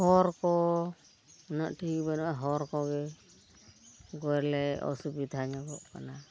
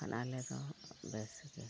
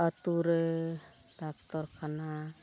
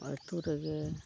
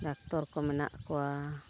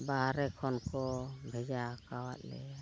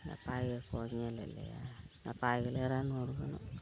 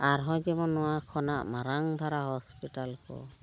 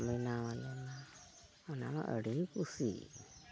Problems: constant background noise, background conversations at intervals